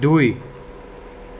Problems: constant background noise